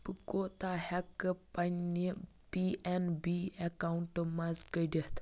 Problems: background sounds at intervals, low volume